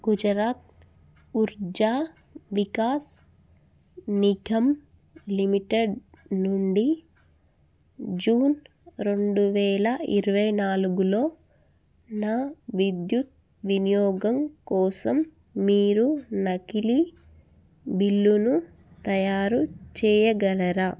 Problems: none marked